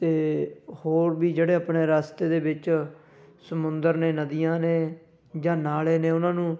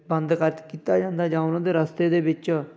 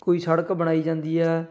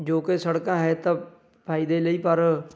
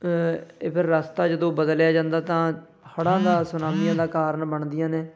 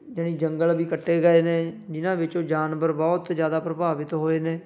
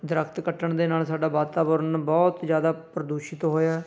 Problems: constant background noise